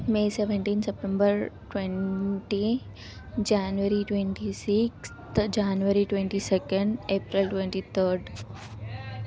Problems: background sounds at intervals